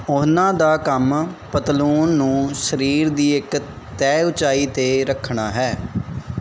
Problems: background sounds at intervals